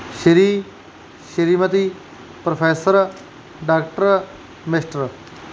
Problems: none marked